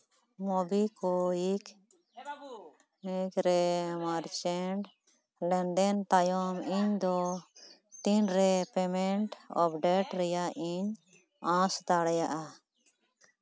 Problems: background conversations at intervals